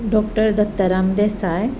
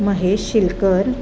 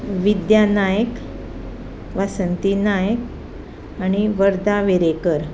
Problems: none marked